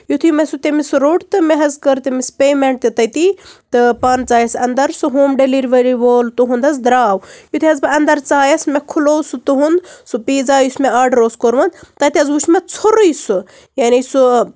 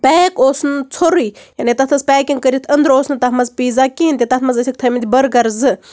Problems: none marked